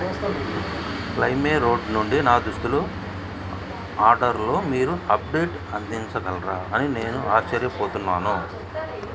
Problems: background sounds at intervals, background conversations at intervals